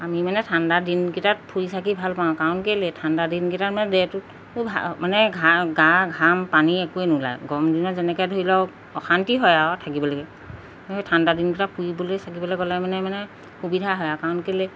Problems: constant background noise